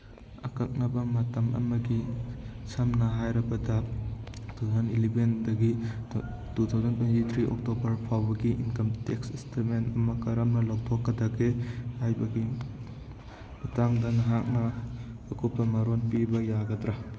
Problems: background sounds at intervals